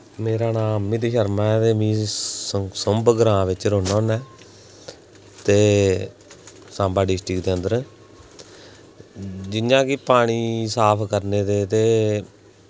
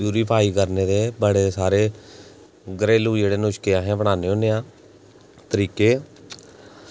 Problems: none marked